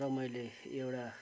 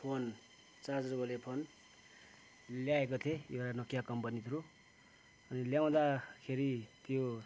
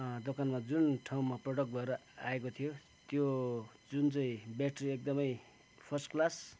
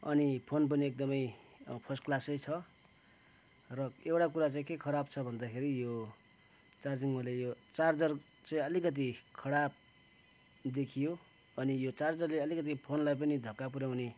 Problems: background sounds at intervals